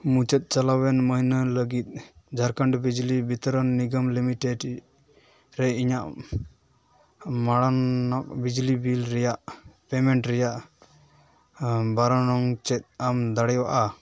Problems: background sounds at intervals